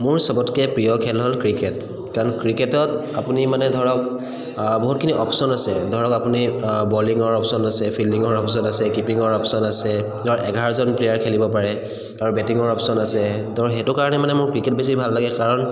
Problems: echo